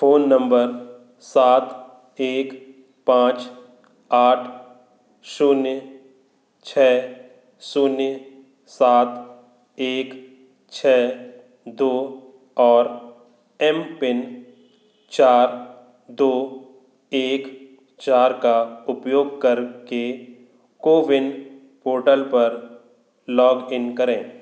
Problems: none marked